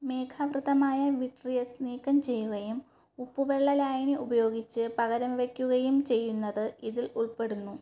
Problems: low volume